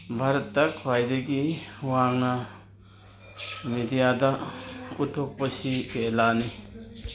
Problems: background conversations at intervals